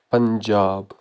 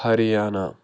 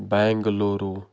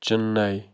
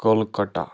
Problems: background sounds at intervals